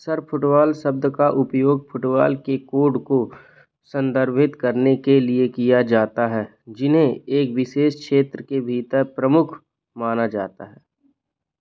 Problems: none marked